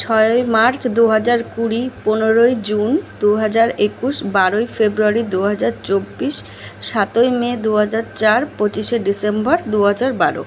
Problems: none marked